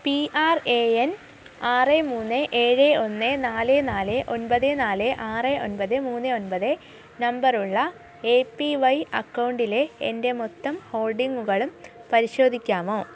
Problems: none marked